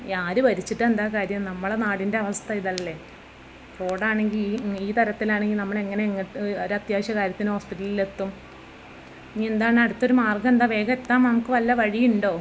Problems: background sounds at intervals, background conversations at intervals